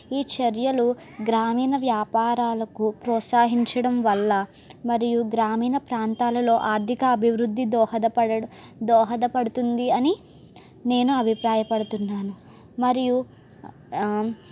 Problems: none marked